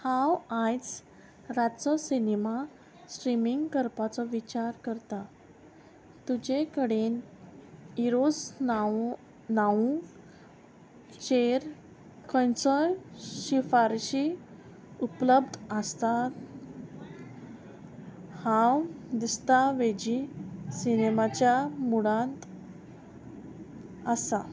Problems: none marked